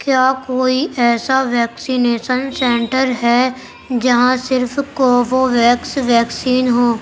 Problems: constant background noise